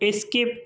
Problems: none marked